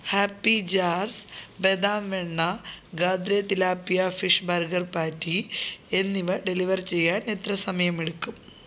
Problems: none marked